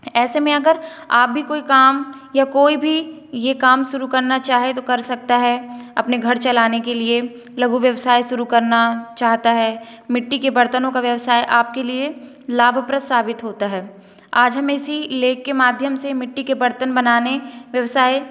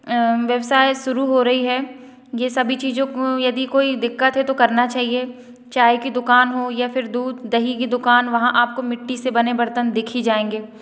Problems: echo